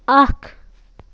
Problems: constant background noise